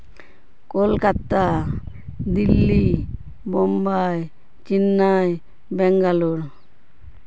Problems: constant background noise